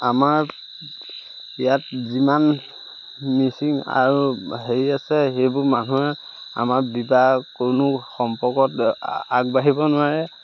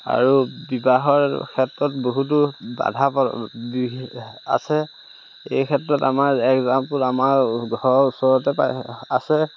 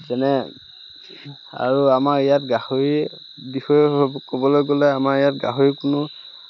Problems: none marked